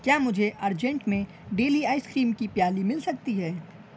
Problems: none marked